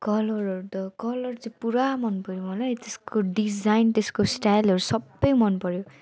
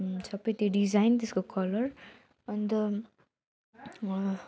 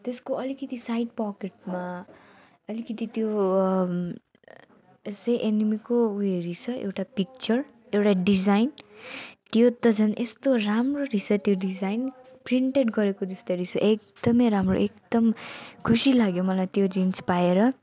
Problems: none marked